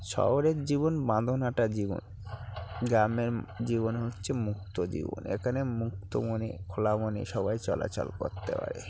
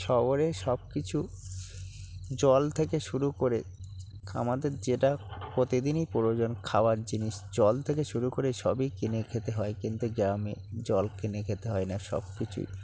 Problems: constant background noise, low volume